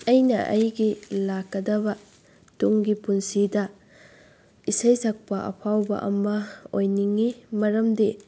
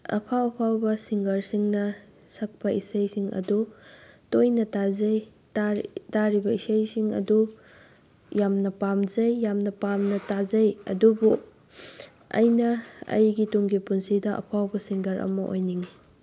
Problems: background sounds at intervals